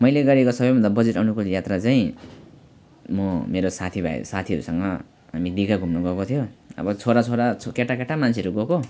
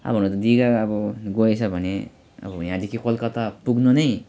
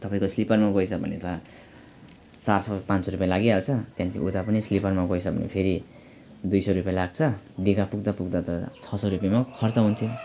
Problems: none marked